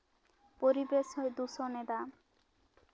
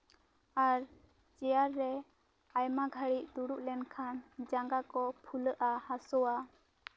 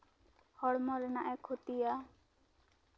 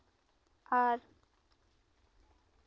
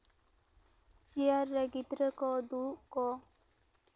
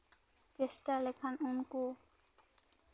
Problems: none marked